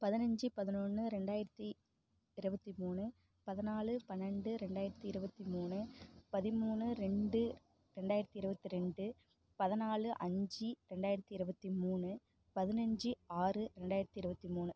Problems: low volume